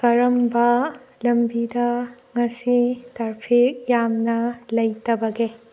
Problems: none marked